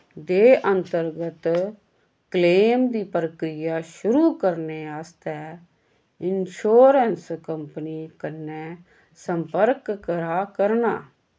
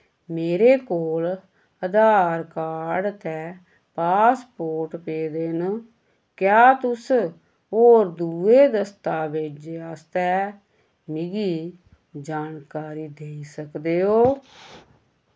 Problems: none marked